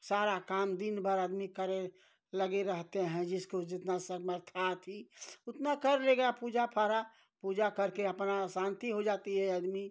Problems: none marked